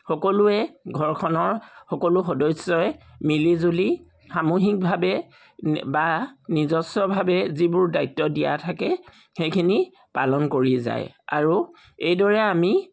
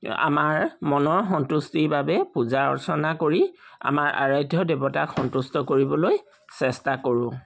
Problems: none marked